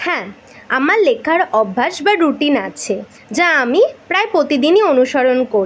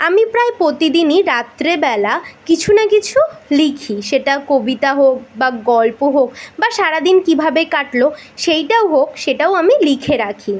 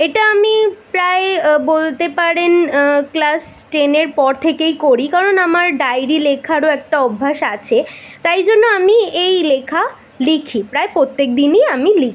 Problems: constant background noise